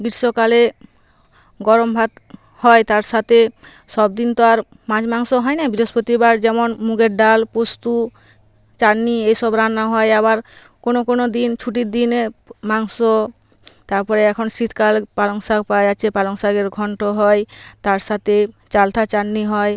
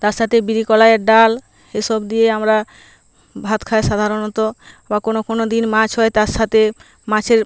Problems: constant background noise